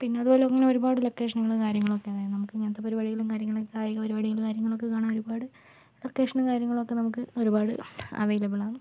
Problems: low volume